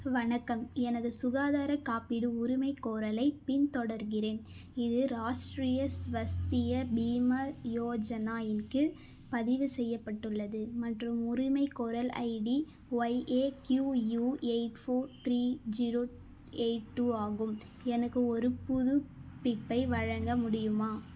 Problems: none marked